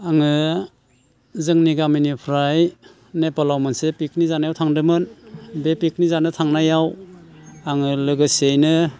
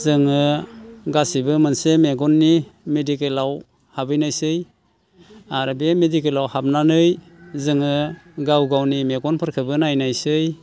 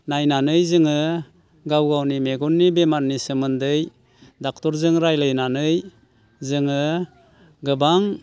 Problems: constant background noise